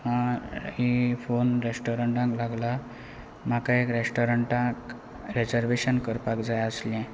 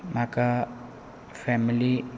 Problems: none marked